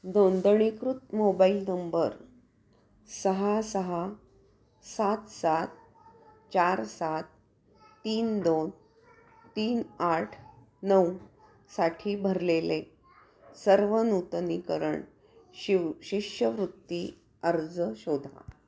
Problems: background sounds at intervals, continuous background conversations